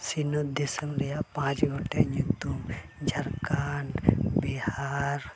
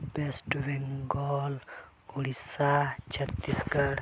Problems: constant background noise